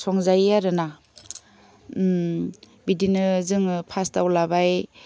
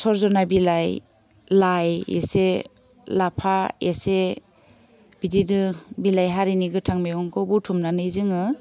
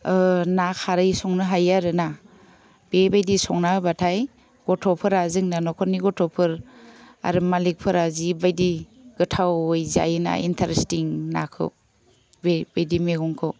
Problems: none marked